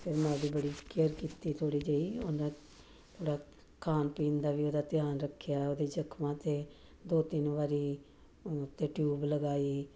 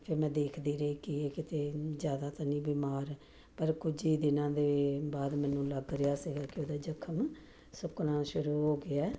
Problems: none marked